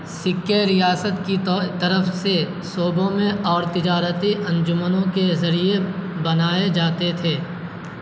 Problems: constant background noise